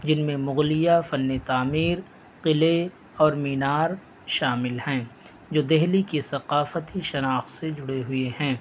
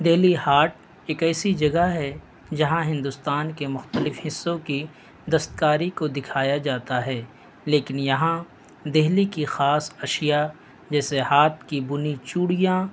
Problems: constant background noise